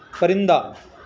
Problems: constant background noise